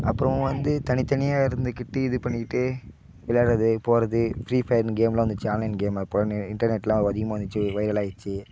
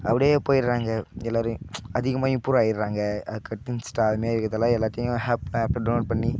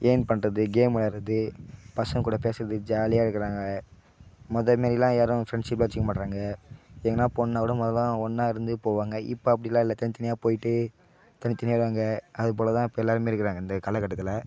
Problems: constant background noise